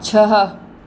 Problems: constant background noise, echo